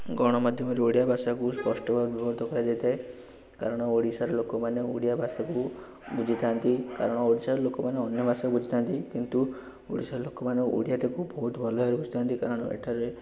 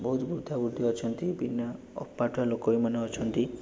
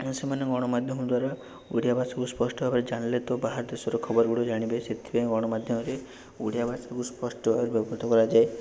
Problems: none marked